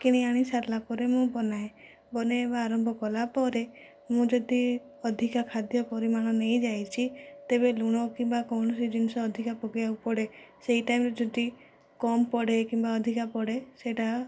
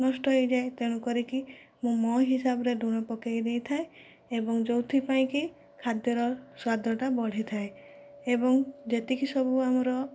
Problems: low volume